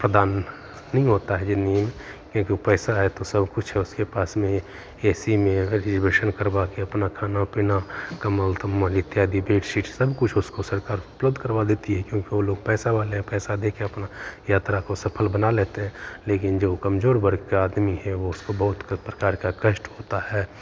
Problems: constant background noise